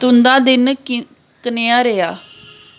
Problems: constant background noise